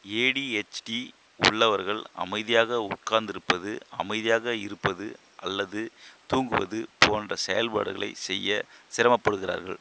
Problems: constant background noise